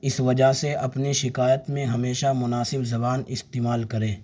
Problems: none marked